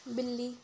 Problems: none marked